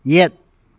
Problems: none marked